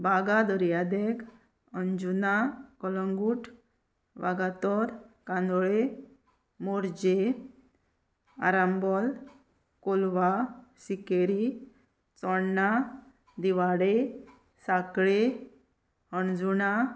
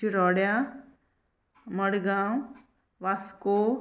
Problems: none marked